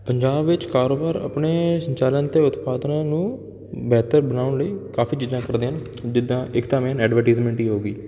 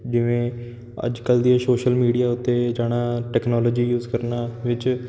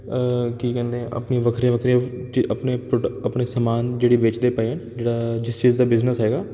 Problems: none marked